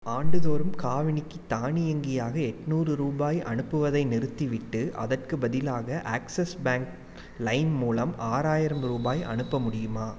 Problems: none marked